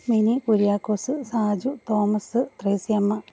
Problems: constant background noise, low volume